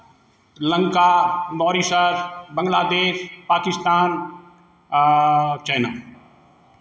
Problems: none marked